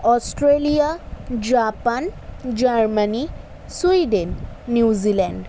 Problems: none marked